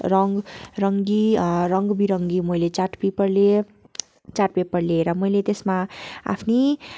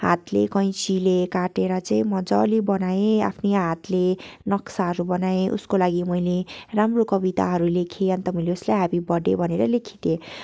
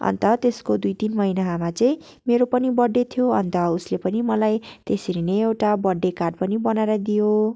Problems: constant background noise